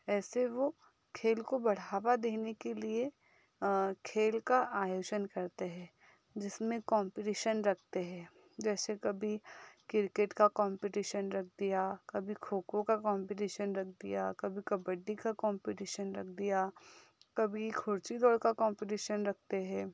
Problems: background sounds at intervals